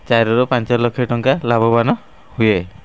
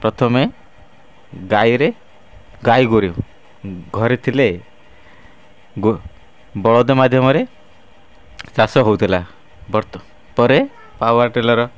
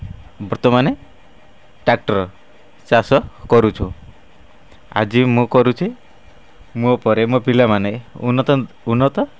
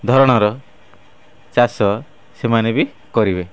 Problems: none marked